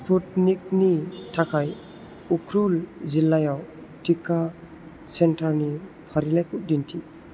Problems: constant background noise